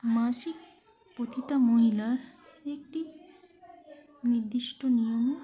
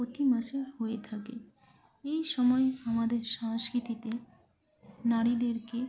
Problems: none marked